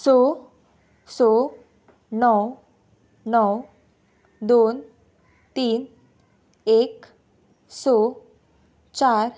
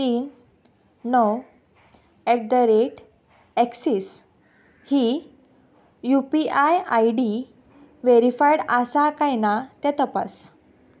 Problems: background sounds at intervals